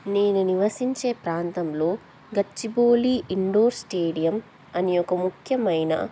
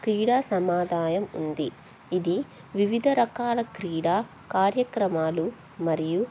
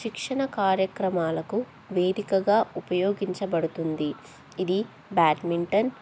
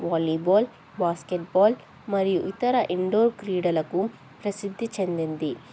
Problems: none marked